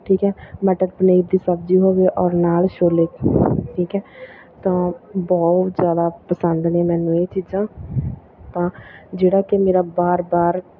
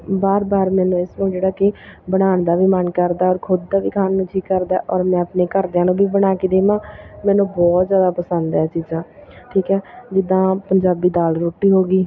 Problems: continuous background conversations